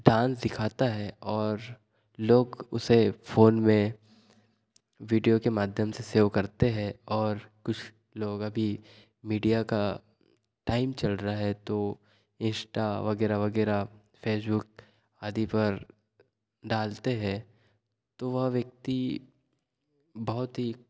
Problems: none marked